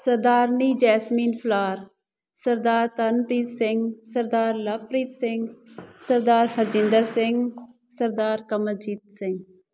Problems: background sounds at intervals